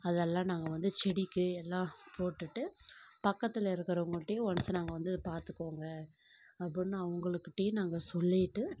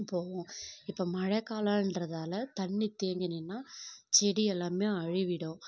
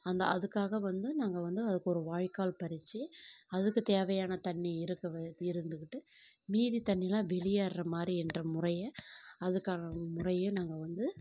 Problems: background sounds at intervals, low volume